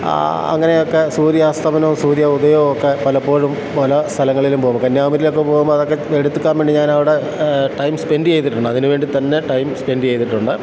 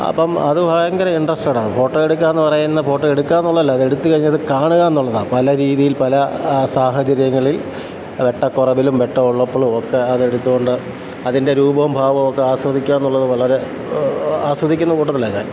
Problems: constant background noise